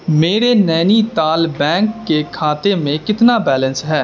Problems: constant background noise